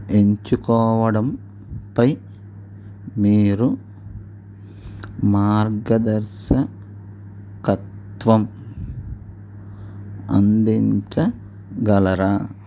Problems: none marked